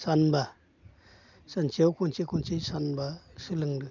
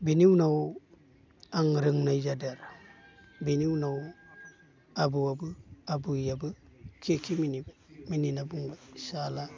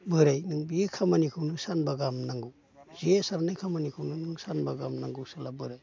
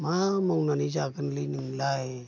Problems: constant background noise